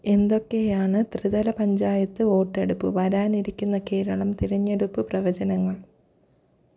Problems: none marked